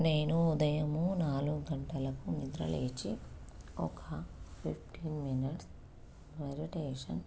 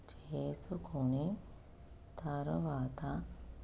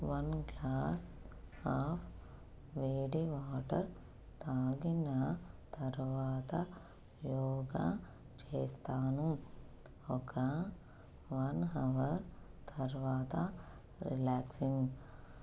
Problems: constant background noise